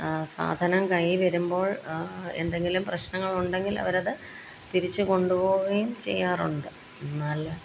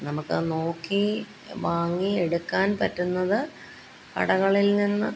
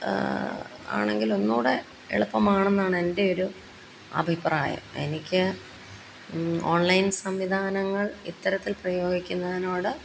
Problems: none marked